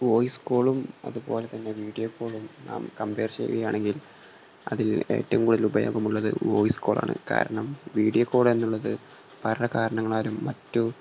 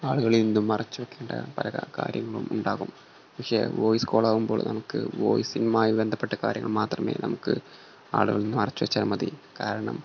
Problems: constant background noise